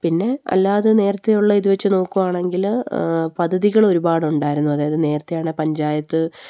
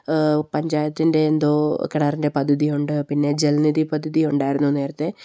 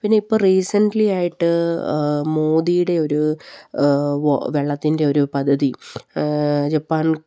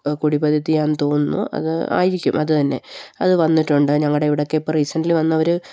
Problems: none marked